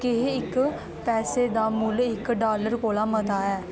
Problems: background sounds at intervals